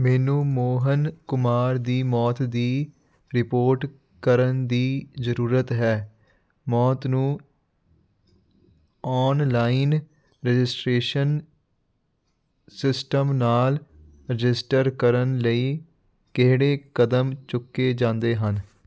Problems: none marked